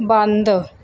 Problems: background sounds at intervals